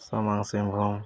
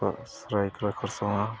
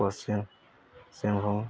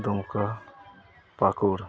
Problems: background sounds at intervals, background conversations at intervals